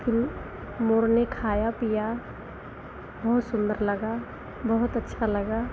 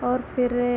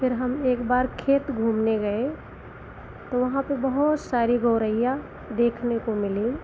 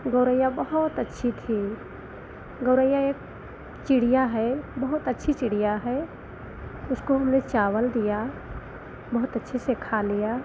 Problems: none marked